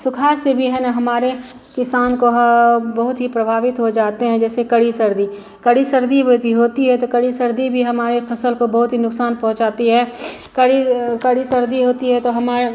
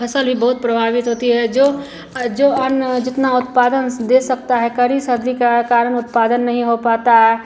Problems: none marked